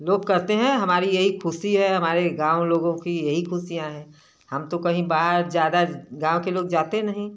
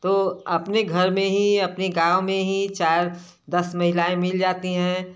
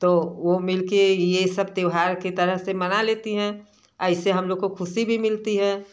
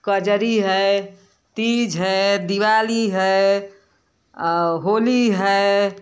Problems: background sounds at intervals, background conversations at intervals